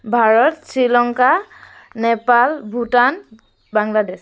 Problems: constant background noise